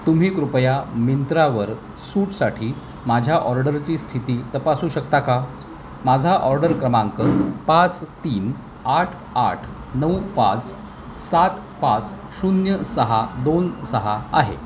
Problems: constant background noise, background conversations at intervals